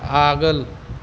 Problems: constant background noise